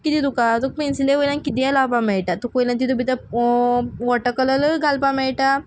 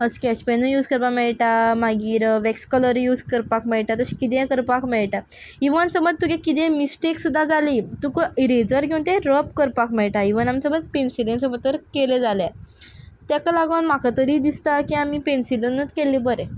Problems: background sounds at intervals